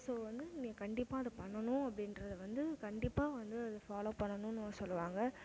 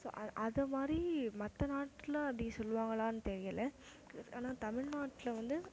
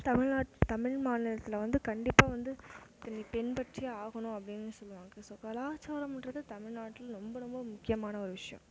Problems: none marked